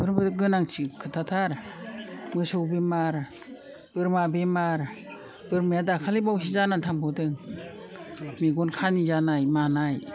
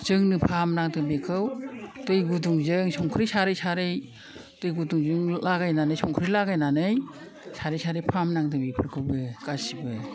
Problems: low volume